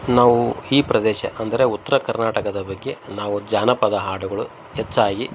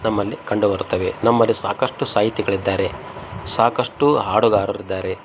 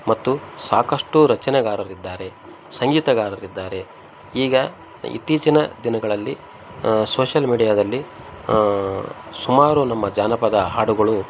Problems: background sounds at intervals